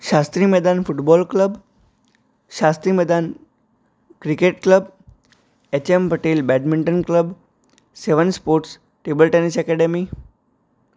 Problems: none marked